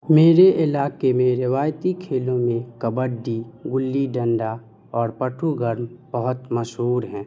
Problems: none marked